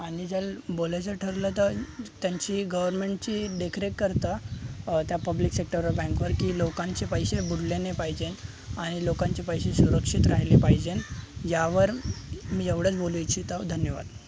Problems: constant background noise, continuous background conversations